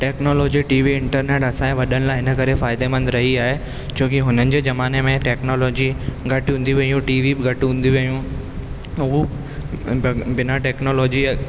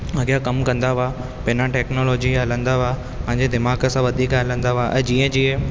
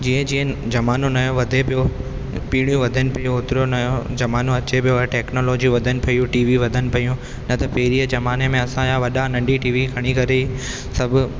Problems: constant background noise, echo